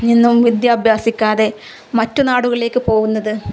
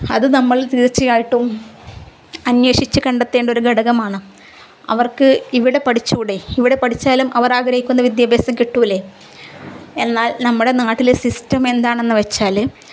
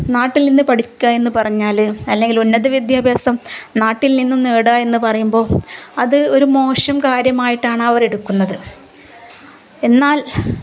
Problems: none marked